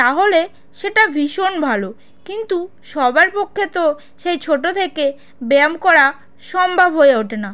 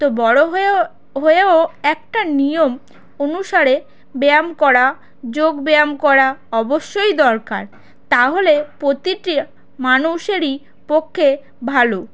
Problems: background sounds at intervals